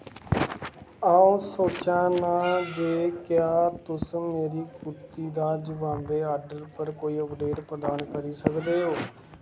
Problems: constant background noise